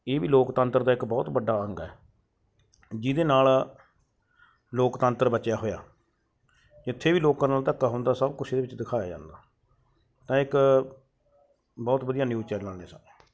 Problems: background sounds at intervals